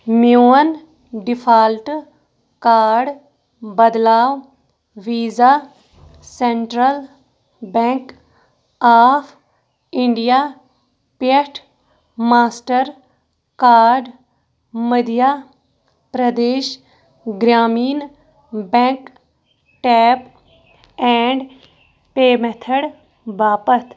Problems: none marked